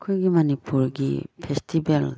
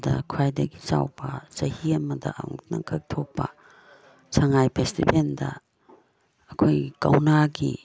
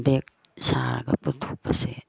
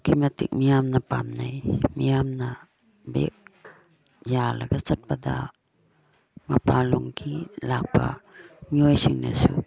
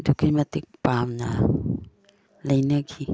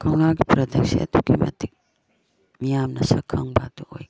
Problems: none marked